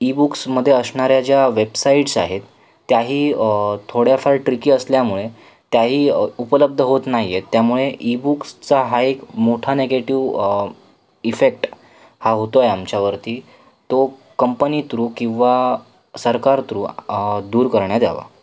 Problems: background sounds at intervals